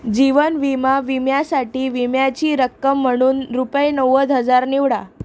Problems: none marked